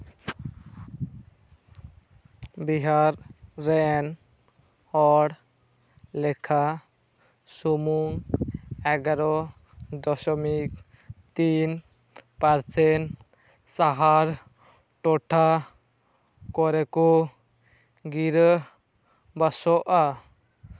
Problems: constant background noise, background conversations at intervals